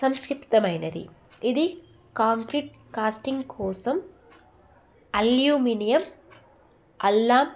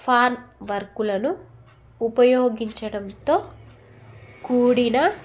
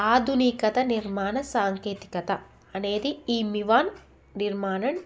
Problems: none marked